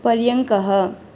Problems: none marked